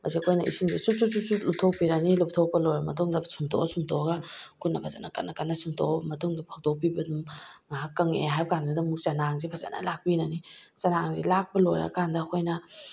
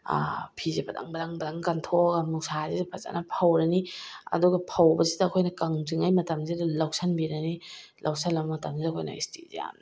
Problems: none marked